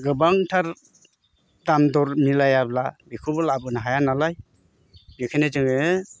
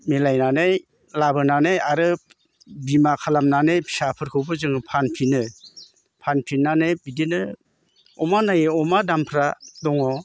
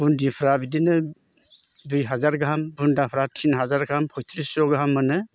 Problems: none marked